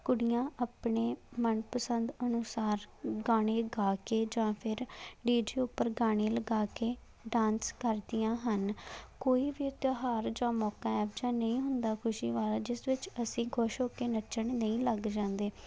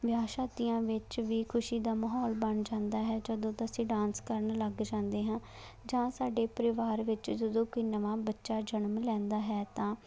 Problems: none marked